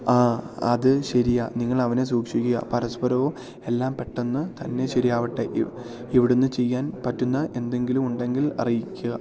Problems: none marked